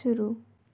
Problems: low volume